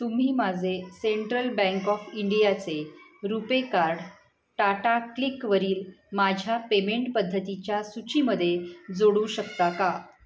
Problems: background sounds at intervals, background conversations at intervals